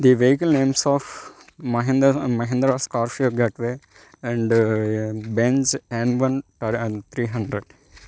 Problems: background sounds at intervals